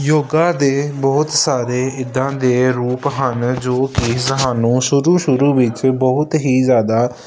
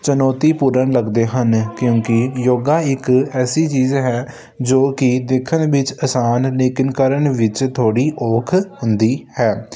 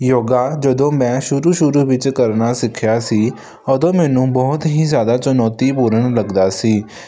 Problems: none marked